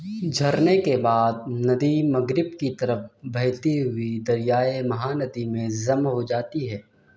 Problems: background sounds at intervals